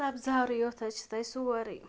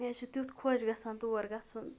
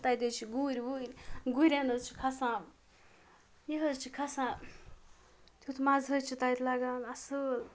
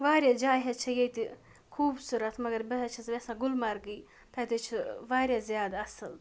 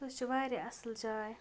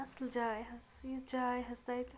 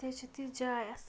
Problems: background sounds at intervals